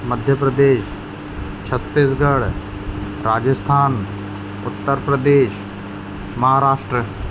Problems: constant background noise